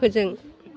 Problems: constant background noise